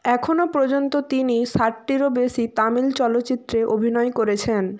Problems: none marked